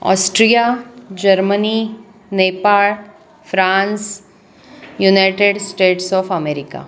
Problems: constant background noise, background conversations at intervals